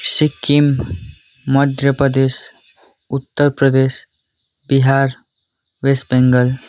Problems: none marked